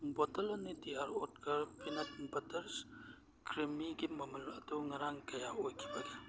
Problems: background sounds at intervals